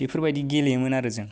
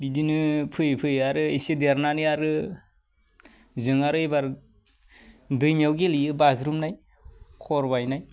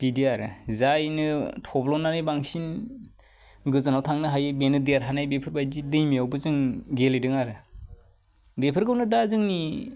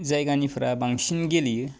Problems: none marked